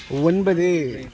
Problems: none marked